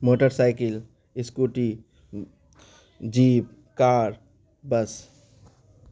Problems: constant background noise